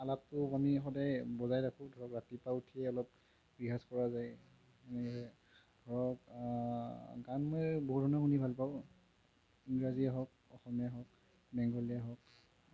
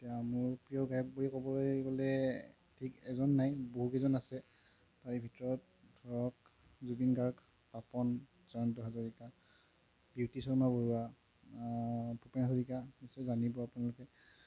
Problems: background sounds at intervals, low volume